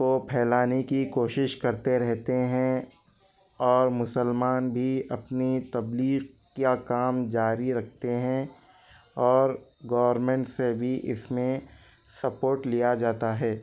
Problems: background sounds at intervals